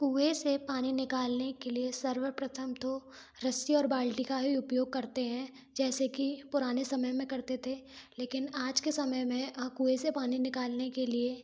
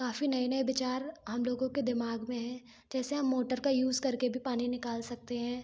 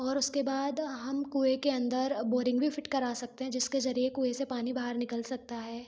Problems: background sounds at intervals